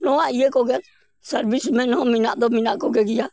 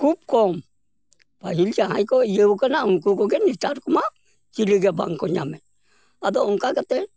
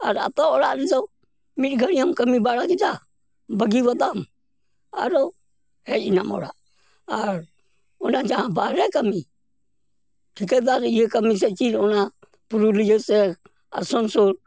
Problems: background sounds at intervals